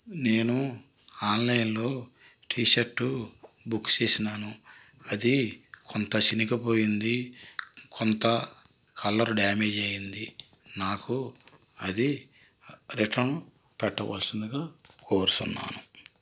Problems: constant background noise